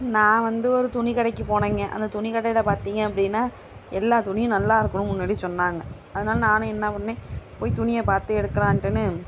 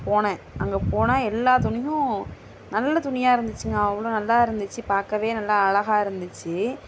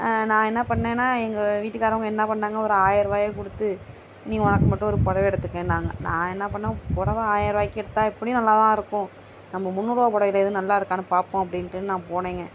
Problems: constant background noise